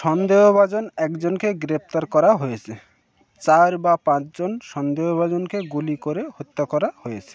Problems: background sounds at intervals, continuous background conversations